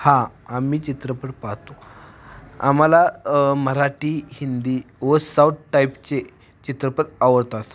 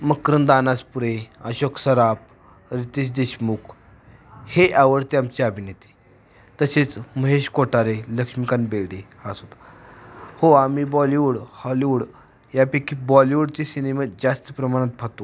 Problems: constant background noise